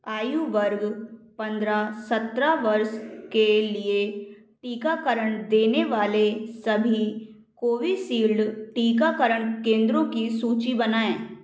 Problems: background sounds at intervals